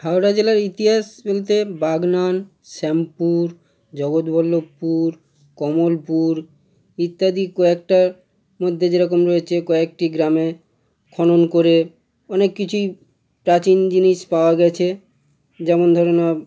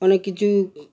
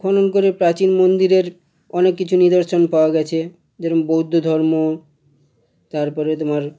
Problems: none marked